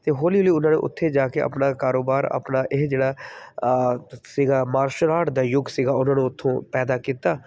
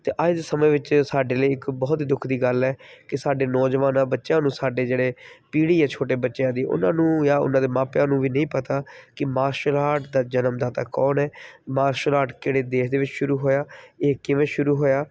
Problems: background sounds at intervals